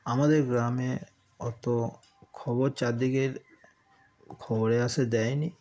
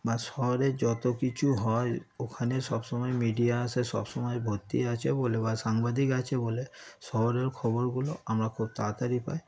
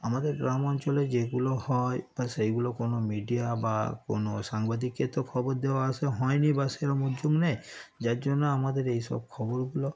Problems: none marked